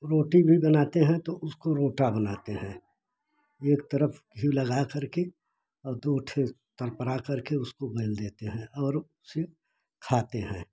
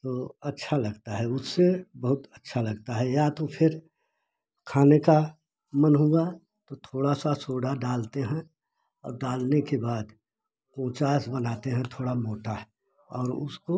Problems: background sounds at intervals